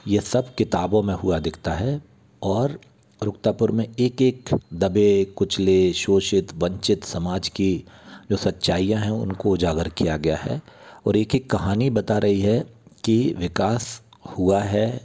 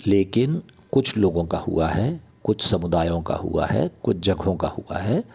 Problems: constant background noise